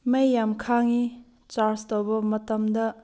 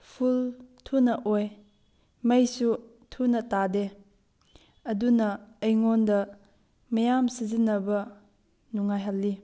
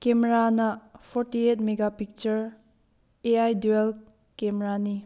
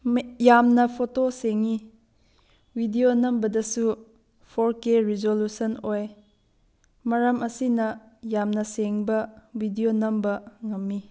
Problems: none marked